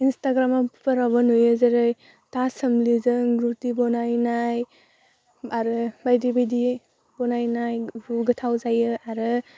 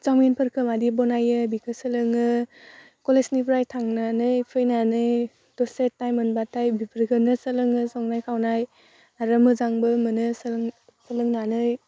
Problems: none marked